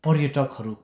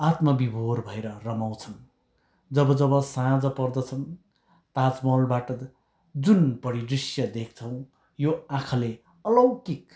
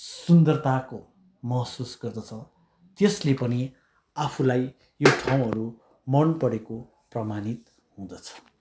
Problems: background sounds at intervals